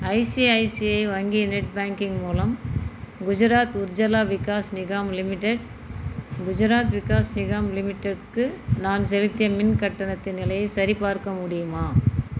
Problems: background sounds at intervals